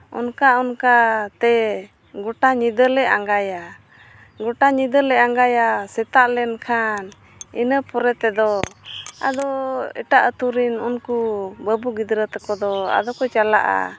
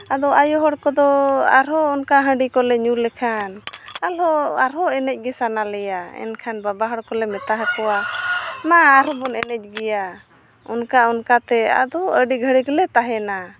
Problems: none marked